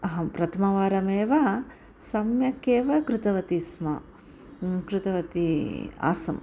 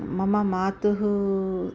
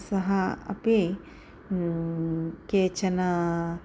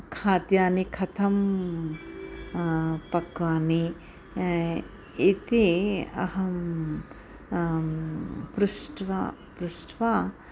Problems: none marked